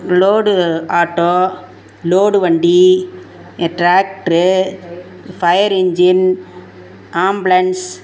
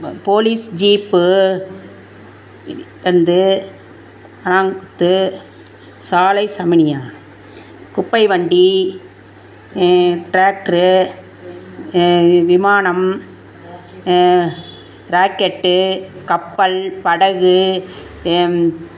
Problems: background conversations at intervals